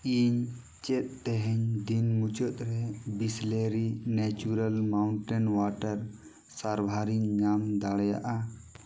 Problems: none marked